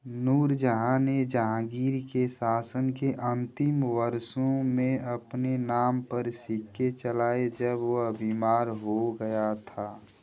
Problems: constant background noise